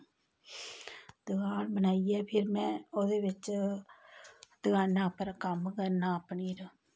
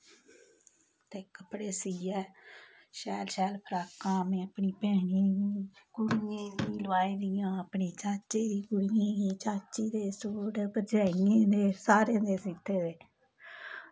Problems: none marked